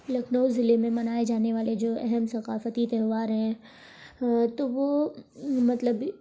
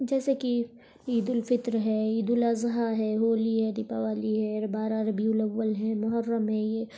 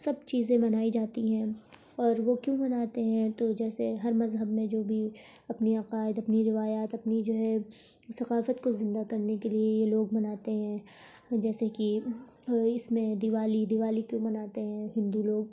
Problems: none marked